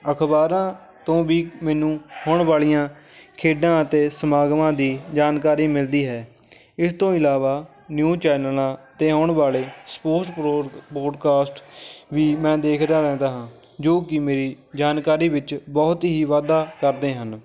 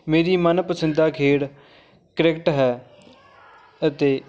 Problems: continuous background conversations